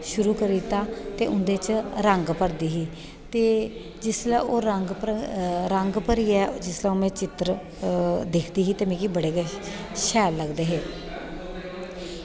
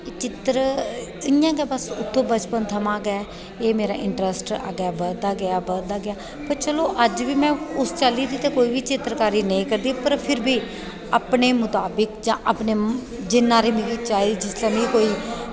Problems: echo